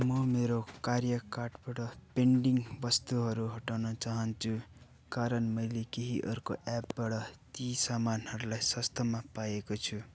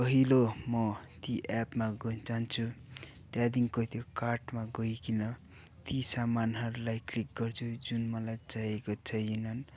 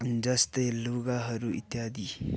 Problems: constant background noise